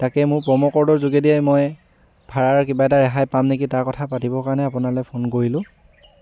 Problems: background sounds at intervals